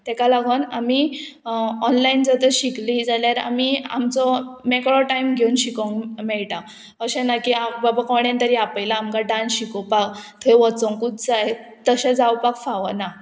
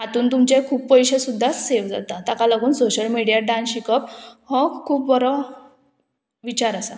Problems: none marked